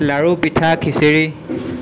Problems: background sounds at intervals